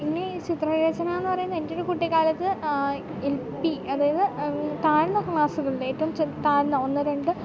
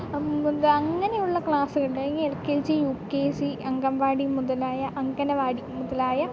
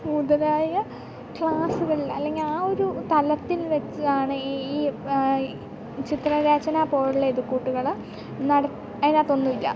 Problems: background sounds at intervals, low volume